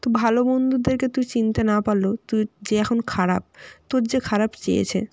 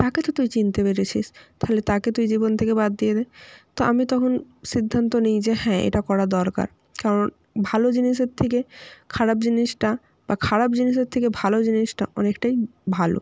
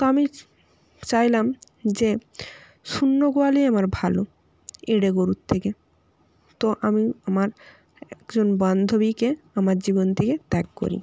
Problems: none marked